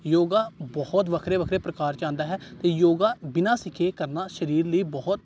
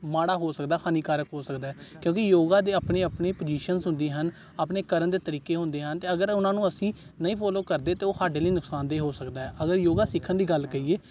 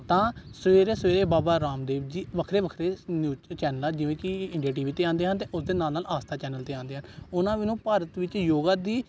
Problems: none marked